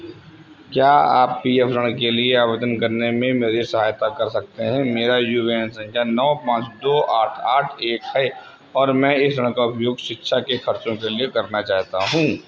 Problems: constant background noise